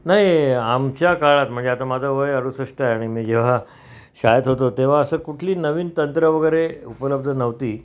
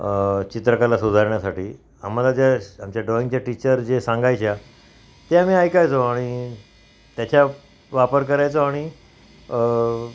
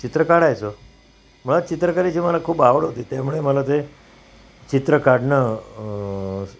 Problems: constant background noise